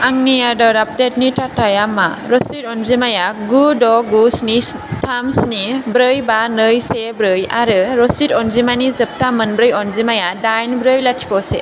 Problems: none marked